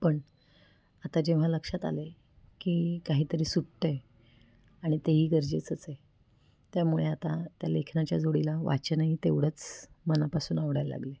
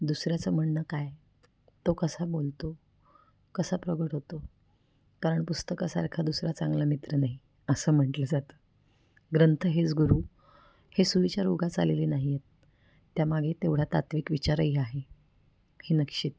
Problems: none marked